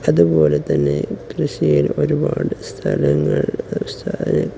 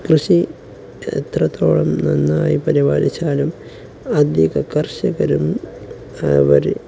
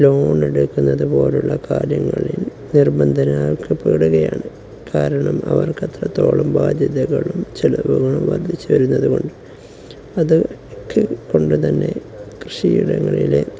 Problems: none marked